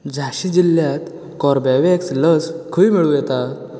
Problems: constant background noise